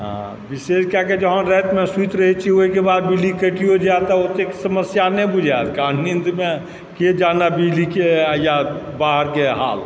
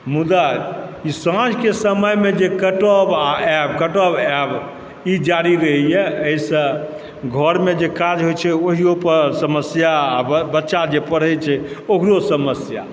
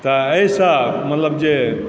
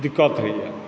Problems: background sounds at intervals